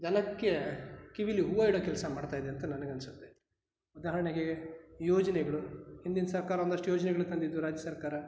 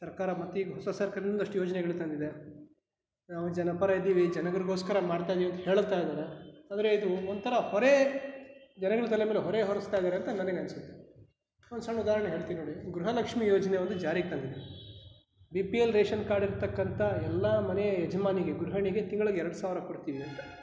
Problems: background sounds at intervals